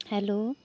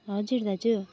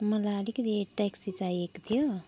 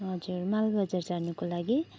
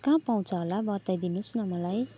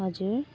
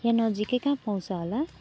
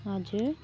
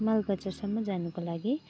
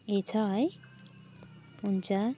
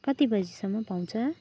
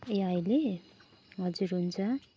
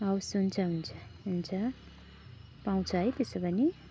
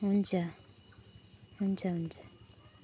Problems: background sounds at intervals